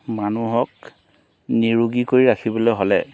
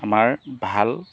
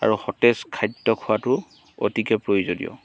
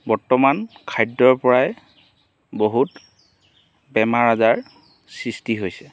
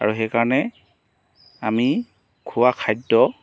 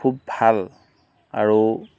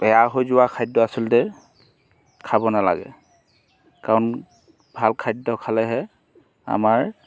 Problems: background sounds at intervals